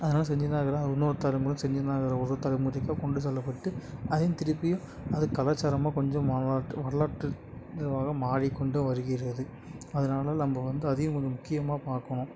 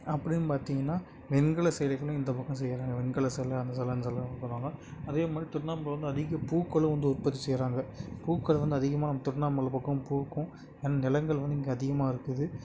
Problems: none marked